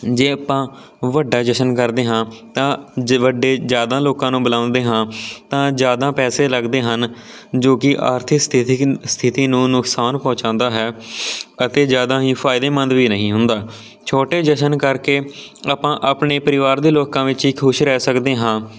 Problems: none marked